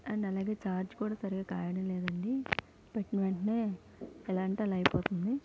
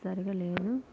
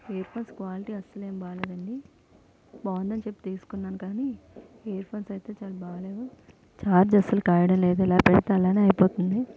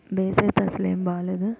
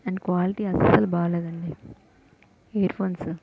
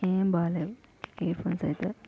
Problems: background sounds at intervals, low volume